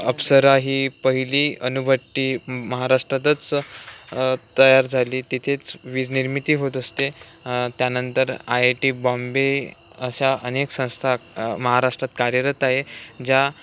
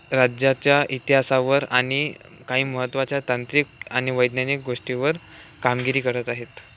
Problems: none marked